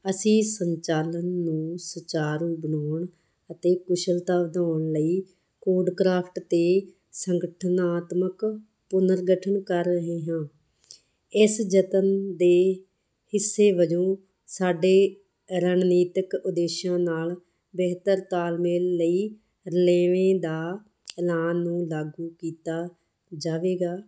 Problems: none marked